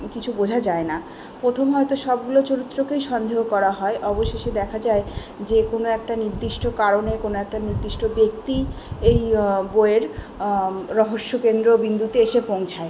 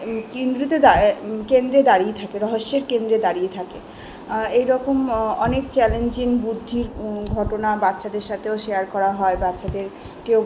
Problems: background sounds at intervals, continuous background conversations